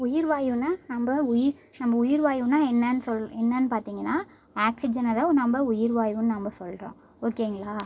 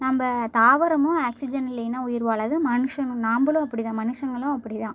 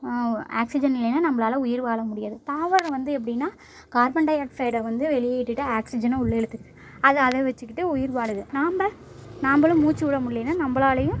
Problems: background sounds at intervals, low volume